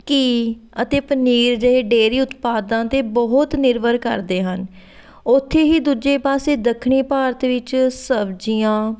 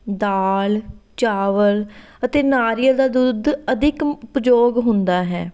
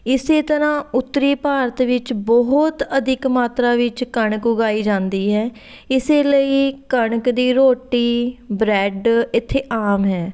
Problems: background sounds at intervals